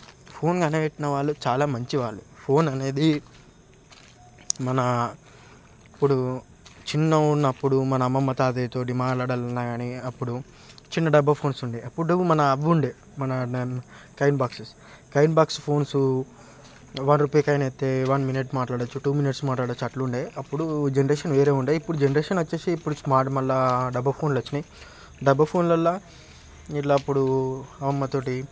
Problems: background sounds at intervals, background conversations at intervals